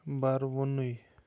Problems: constant background noise